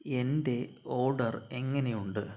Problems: none marked